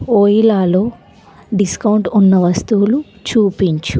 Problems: none marked